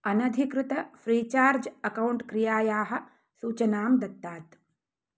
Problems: none marked